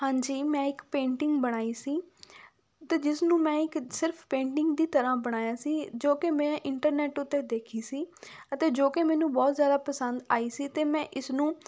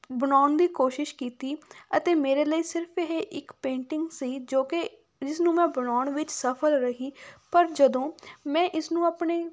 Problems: none marked